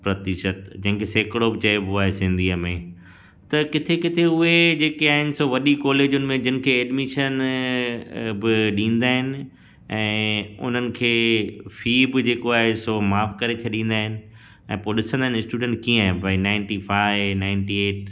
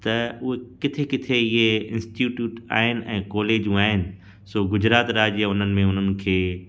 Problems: constant background noise, echo